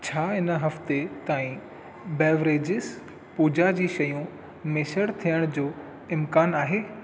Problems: echo